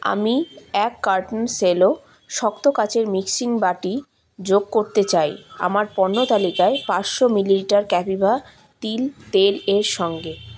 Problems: none marked